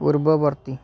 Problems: constant background noise